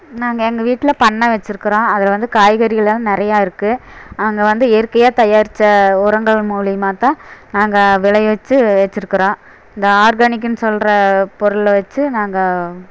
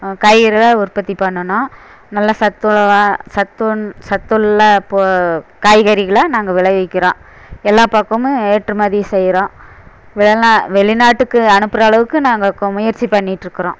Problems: background sounds at intervals